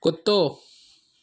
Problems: none marked